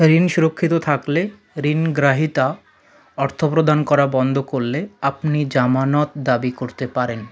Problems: continuous background conversations